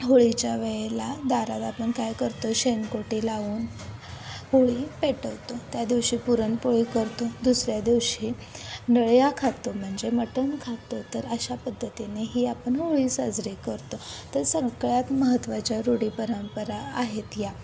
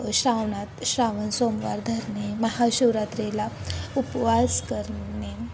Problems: constant background noise, background conversations at intervals